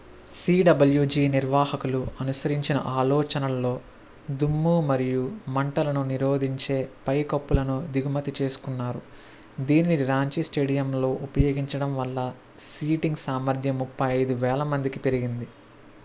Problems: constant background noise